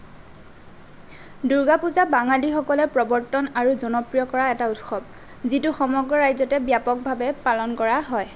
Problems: none marked